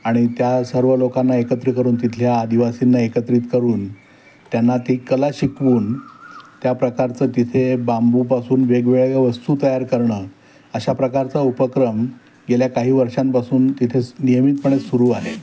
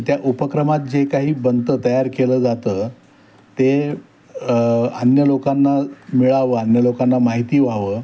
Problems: constant background noise